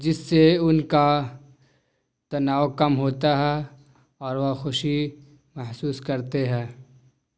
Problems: none marked